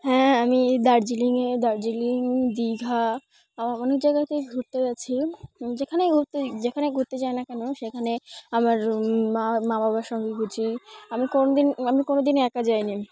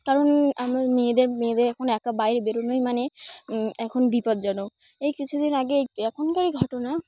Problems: none marked